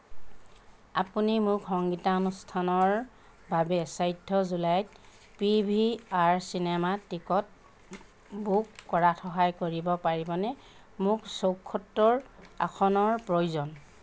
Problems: none marked